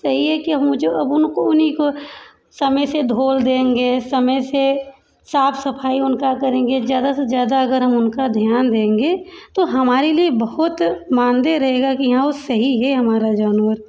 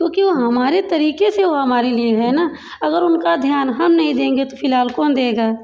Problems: background sounds at intervals